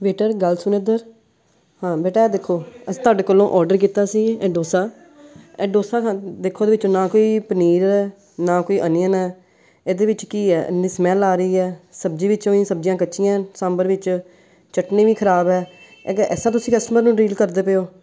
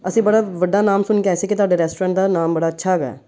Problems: background sounds at intervals